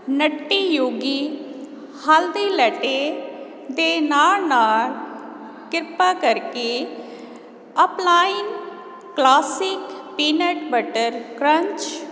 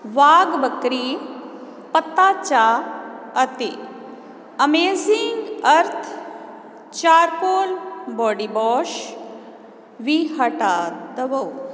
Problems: none marked